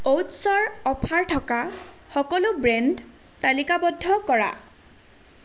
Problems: constant background noise